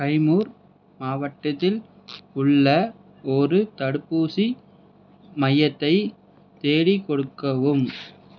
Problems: constant background noise